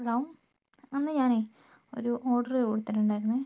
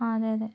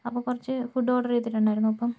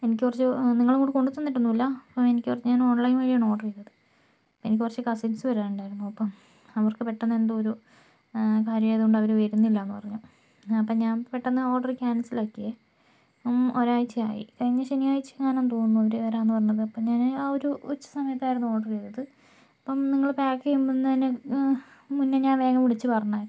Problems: low volume